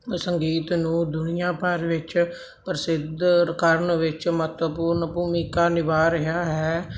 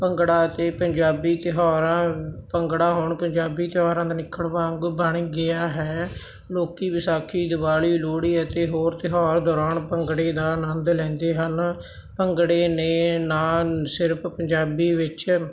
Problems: constant background noise